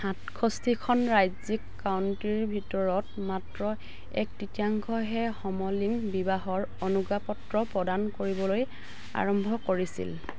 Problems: constant background noise